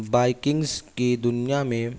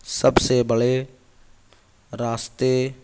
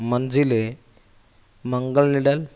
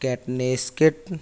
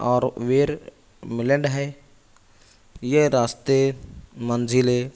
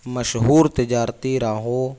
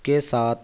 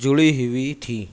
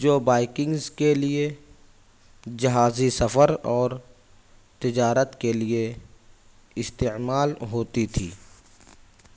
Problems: background sounds at intervals